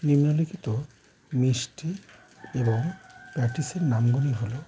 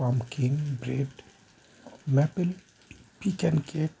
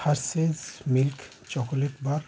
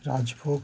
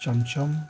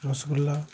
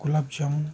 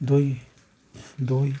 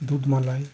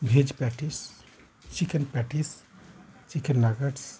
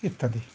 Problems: constant background noise